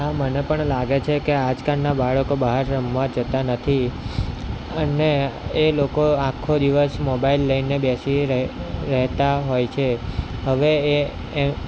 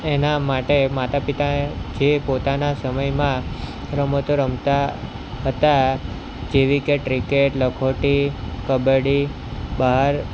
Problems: constant background noise